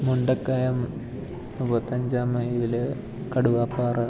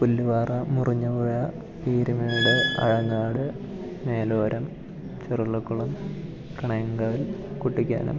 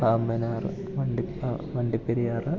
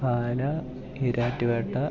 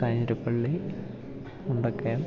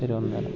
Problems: background conversations at intervals, low volume